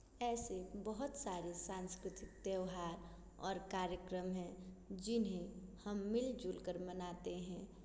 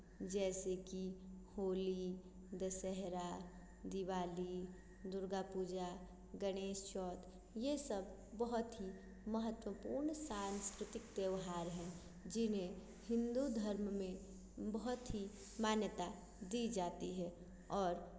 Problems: constant background noise